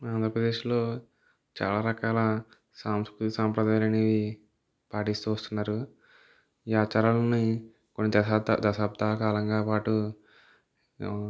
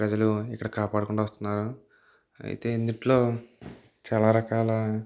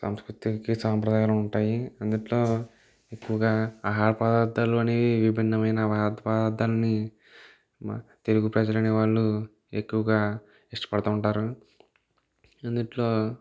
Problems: background sounds at intervals